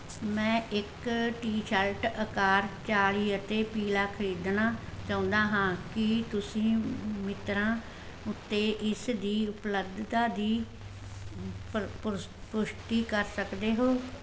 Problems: constant background noise